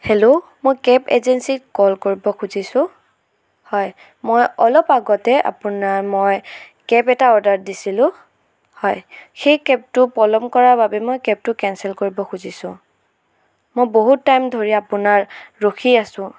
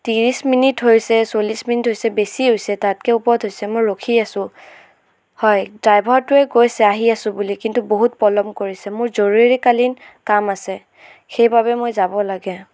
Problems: background sounds at intervals